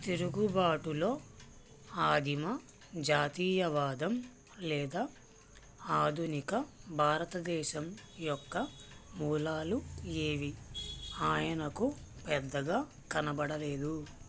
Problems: none marked